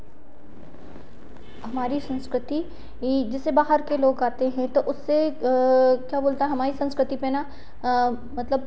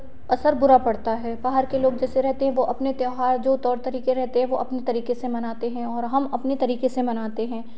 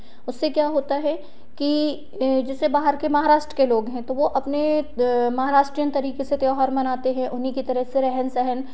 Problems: none marked